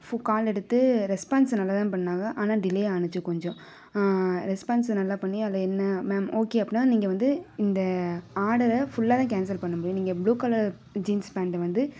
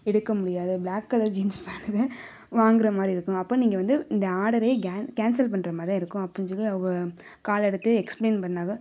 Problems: background conversations at intervals